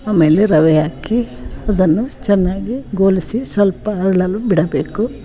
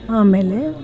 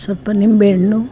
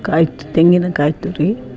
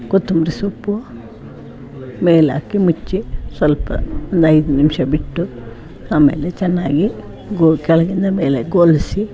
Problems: constant background noise